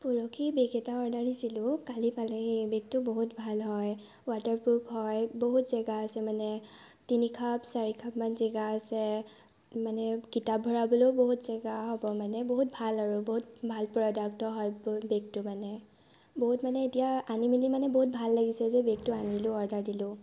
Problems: none marked